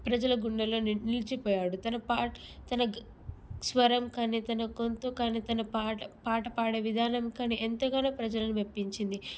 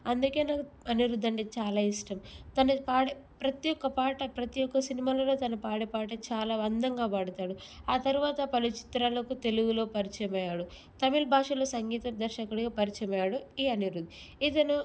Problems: none marked